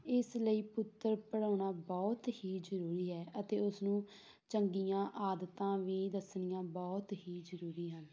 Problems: background sounds at intervals